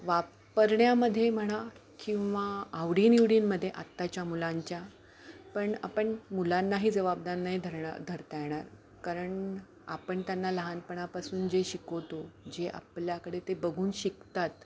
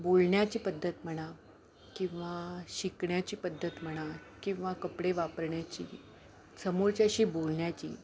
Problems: none marked